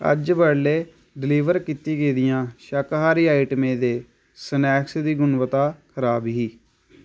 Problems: constant background noise